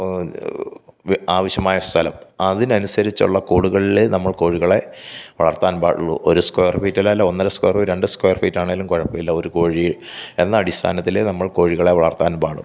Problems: none marked